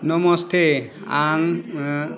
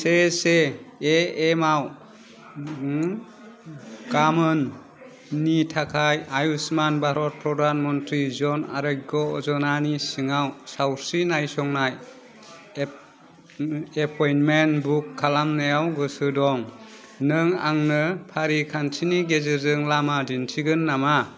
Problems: none marked